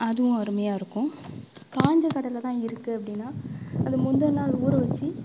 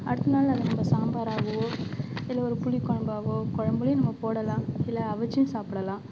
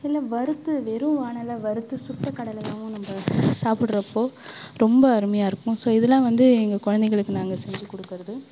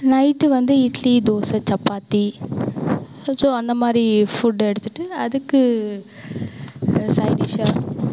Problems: background sounds at intervals